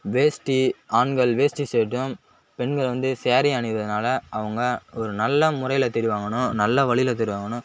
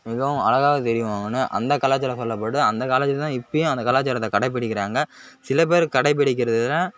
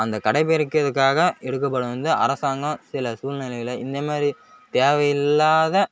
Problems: none marked